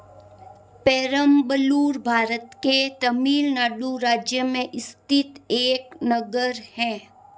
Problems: constant background noise